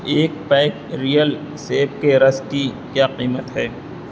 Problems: constant background noise